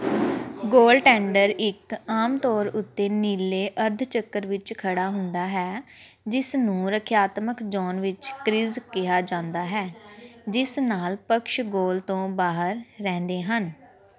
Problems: background sounds at intervals